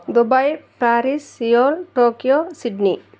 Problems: background conversations at intervals